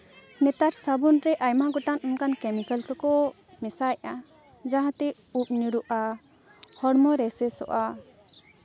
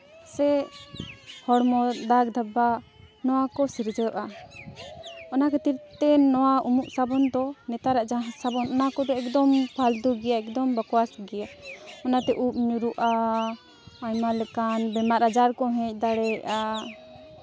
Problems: constant background noise, continuous background conversations